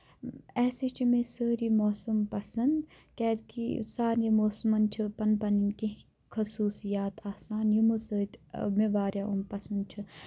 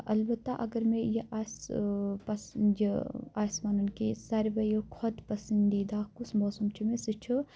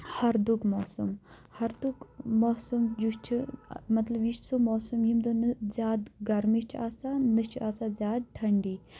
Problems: none marked